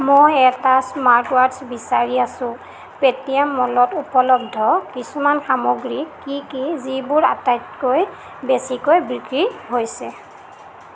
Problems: constant background noise